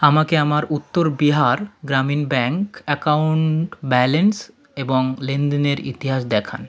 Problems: background conversations at intervals